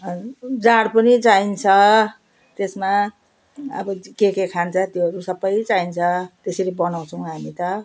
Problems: none marked